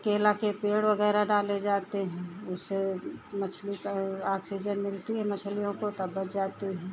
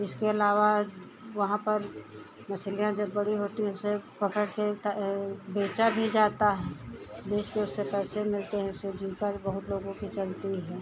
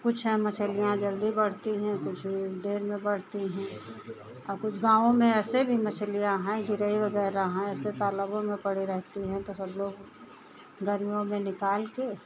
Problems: none marked